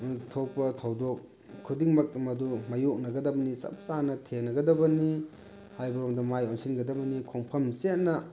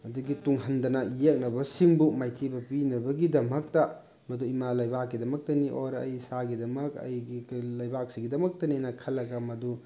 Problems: background sounds at intervals